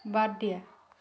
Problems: continuous background conversations